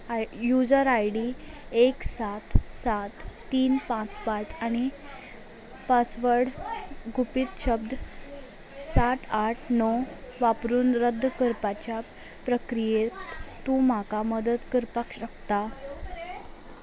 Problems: none marked